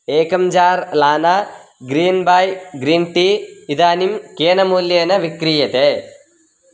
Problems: constant background noise